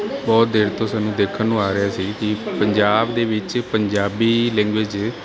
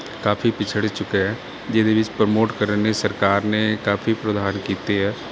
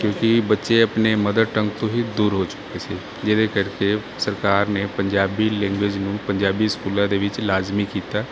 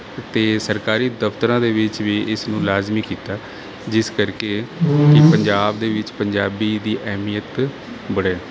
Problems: none marked